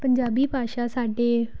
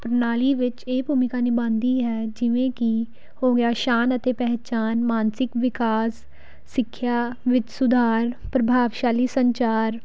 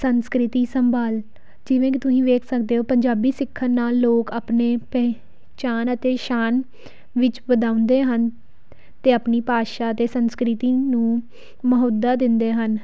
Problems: background sounds at intervals